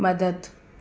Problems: constant background noise, echo